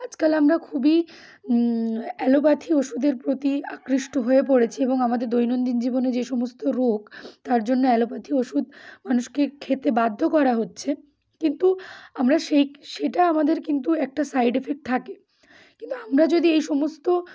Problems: constant background noise